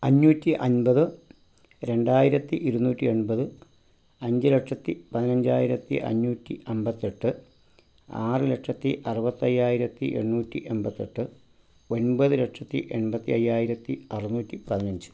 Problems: low volume